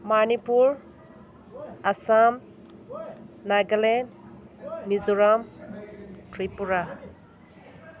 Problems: constant background noise